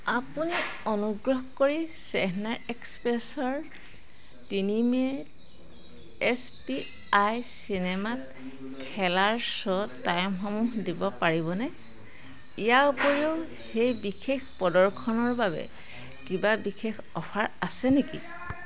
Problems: constant background noise, background conversations at intervals